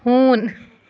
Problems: background sounds at intervals